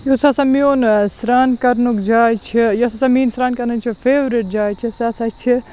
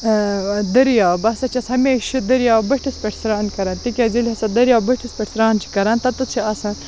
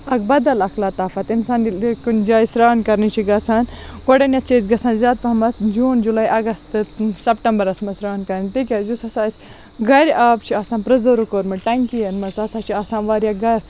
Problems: constant background noise